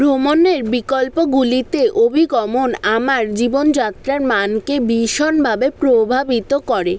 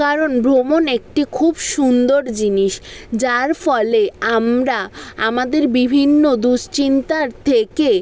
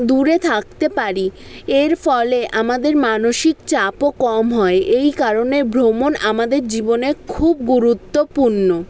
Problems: background conversations at intervals